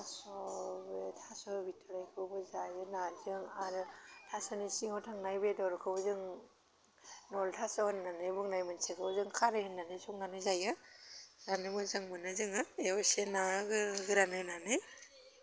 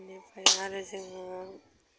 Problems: none marked